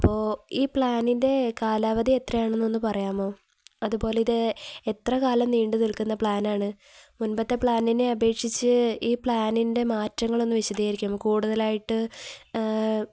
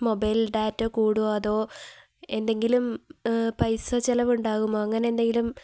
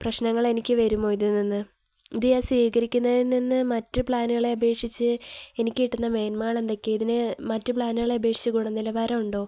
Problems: none marked